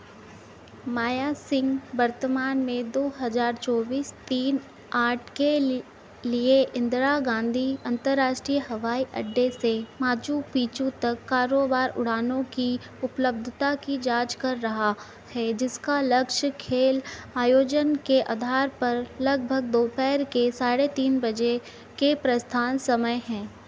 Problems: constant background noise